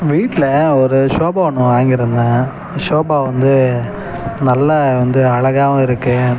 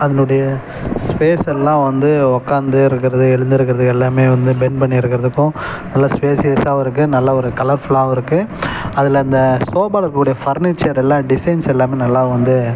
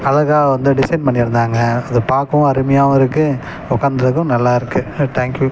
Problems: background sounds at intervals